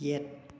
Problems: none marked